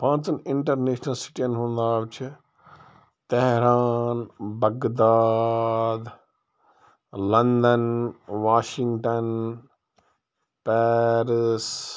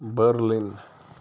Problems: background sounds at intervals